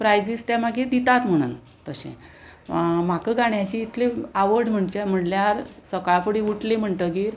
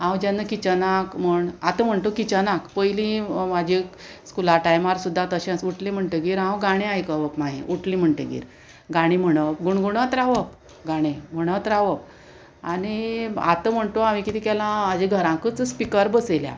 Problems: constant background noise